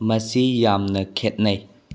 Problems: low volume